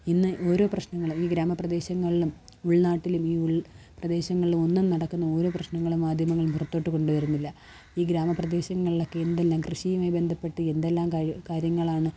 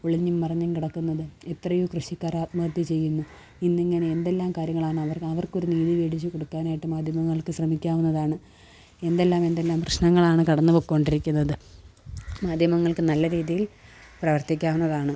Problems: background sounds at intervals